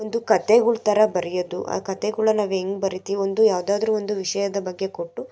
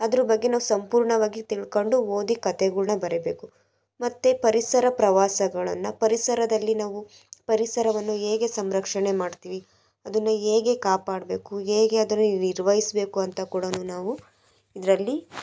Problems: background sounds at intervals